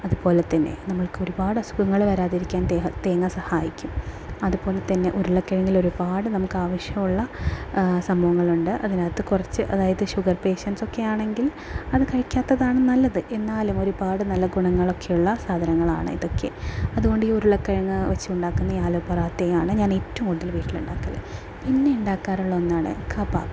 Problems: background sounds at intervals, low volume